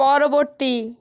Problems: none marked